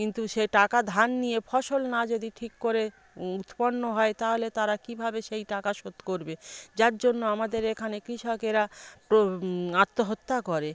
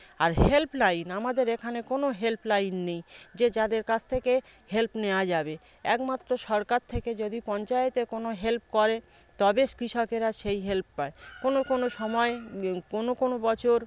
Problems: none marked